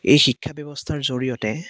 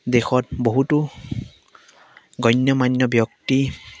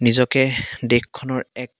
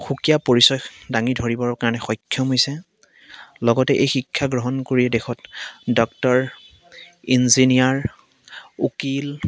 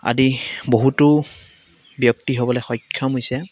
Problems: constant background noise